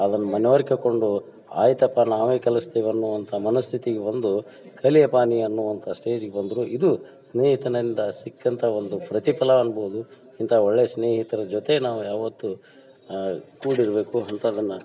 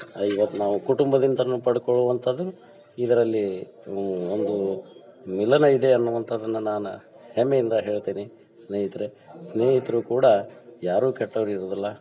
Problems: background conversations at intervals